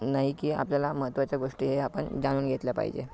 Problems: background sounds at intervals